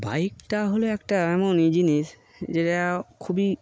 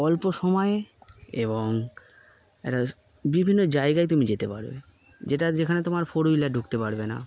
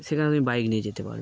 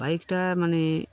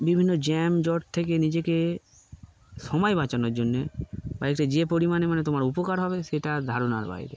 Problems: none marked